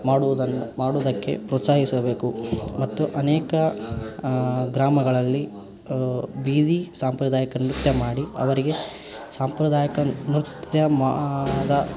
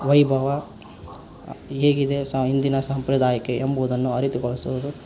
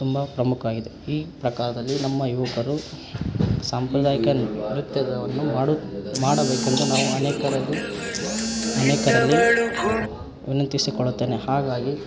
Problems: background sounds at intervals